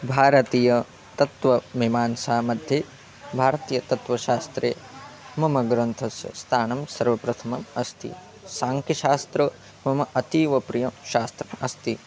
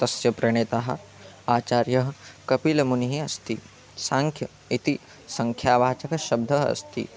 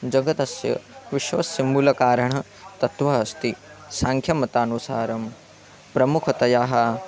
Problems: constant background noise